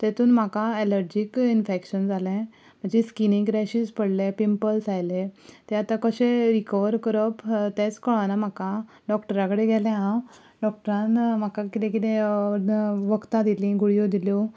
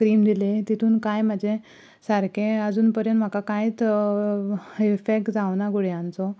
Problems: background sounds at intervals